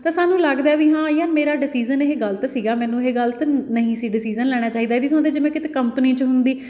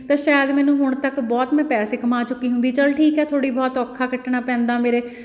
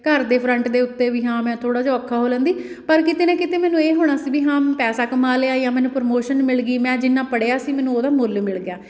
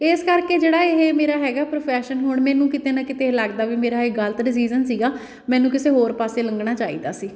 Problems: background sounds at intervals